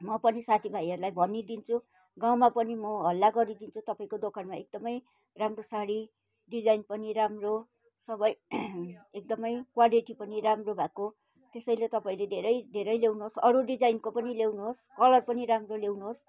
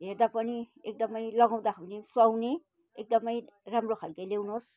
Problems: background sounds at intervals